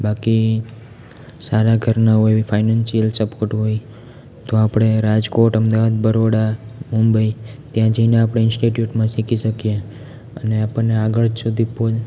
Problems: constant background noise